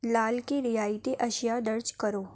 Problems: none marked